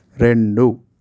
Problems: constant background noise